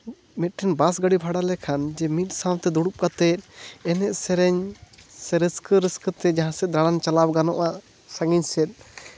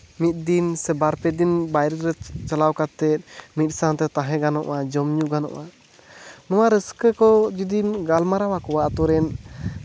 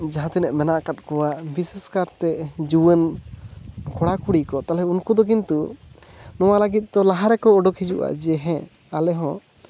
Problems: constant background noise